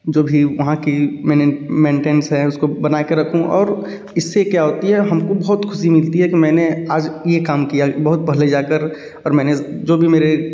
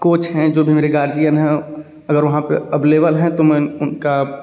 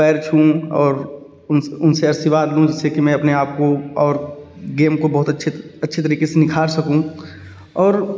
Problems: background sounds at intervals